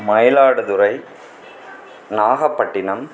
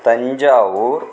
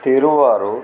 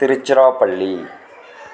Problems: background conversations at intervals